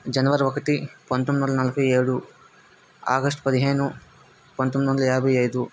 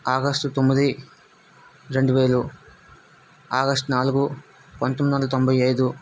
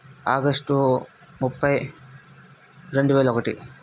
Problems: constant background noise